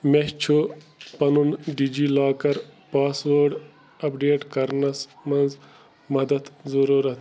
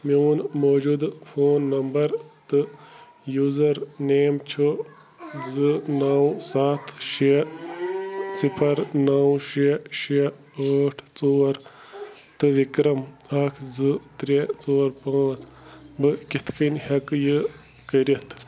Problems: constant background noise